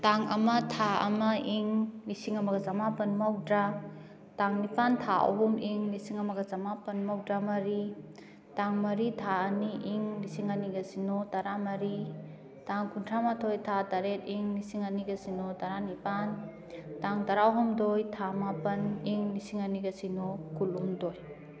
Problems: background conversations at intervals